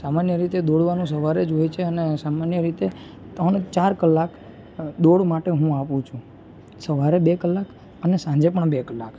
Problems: constant background noise